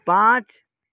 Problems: constant background noise